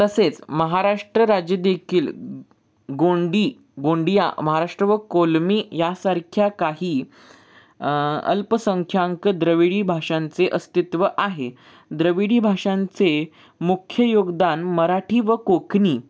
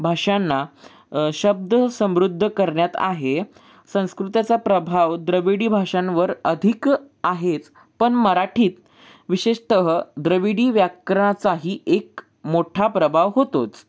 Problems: background sounds at intervals